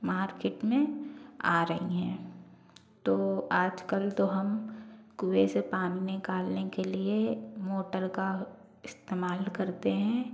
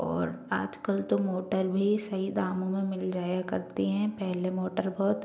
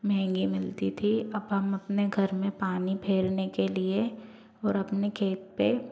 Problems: low volume